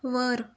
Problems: none marked